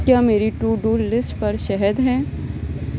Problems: constant background noise